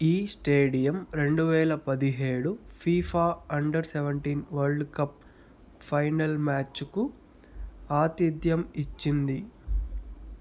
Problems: constant background noise